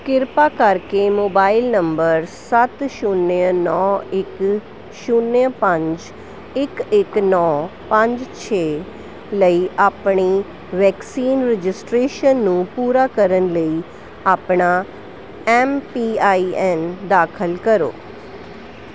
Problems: constant background noise